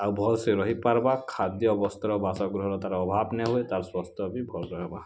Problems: constant background noise